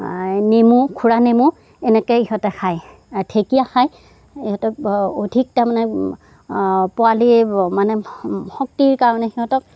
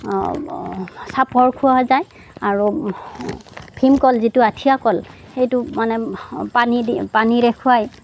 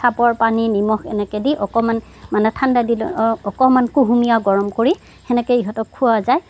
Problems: background sounds at intervals, background conversations at intervals